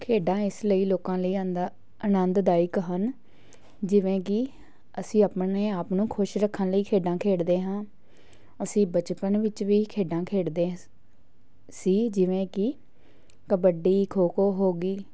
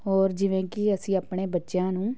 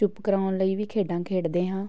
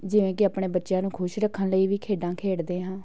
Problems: background sounds at intervals, background conversations at intervals